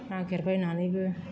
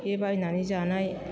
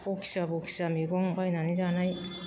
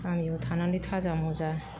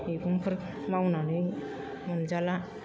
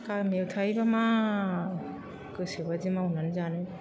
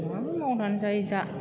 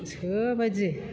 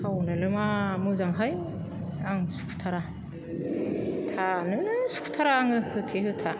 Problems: constant background noise